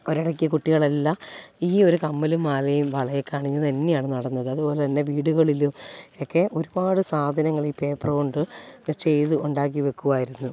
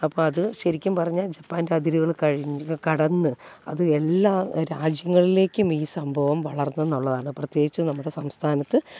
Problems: low volume